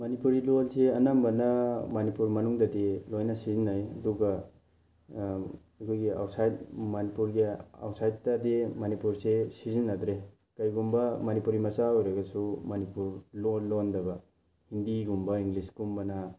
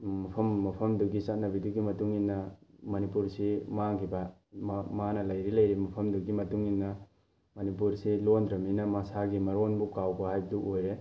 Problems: background sounds at intervals